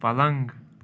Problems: none marked